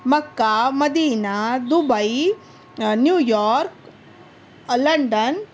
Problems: none marked